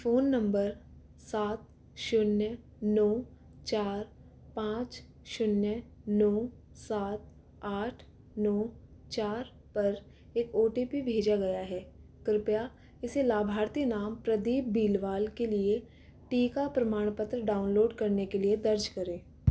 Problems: background sounds at intervals, echo